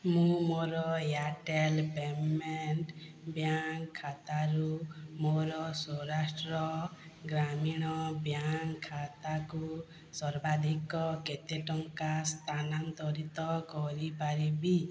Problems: low volume